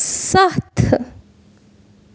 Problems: none marked